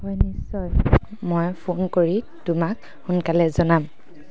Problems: constant background noise